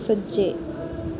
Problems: constant background noise